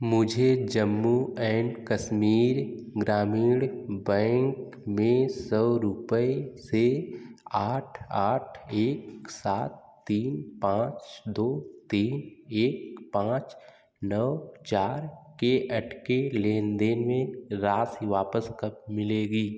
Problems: background sounds at intervals, echo